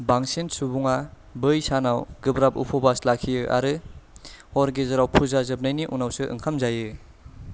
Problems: none marked